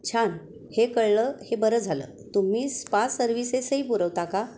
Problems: constant background noise